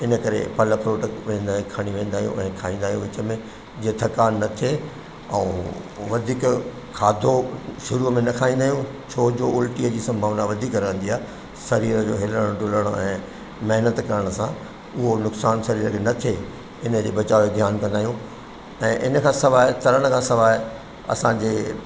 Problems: constant background noise, echo